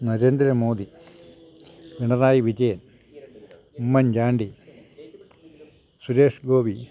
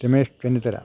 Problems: low volume